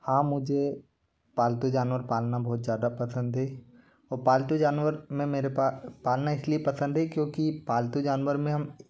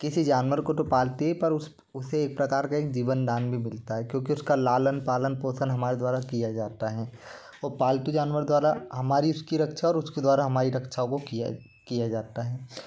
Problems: constant background noise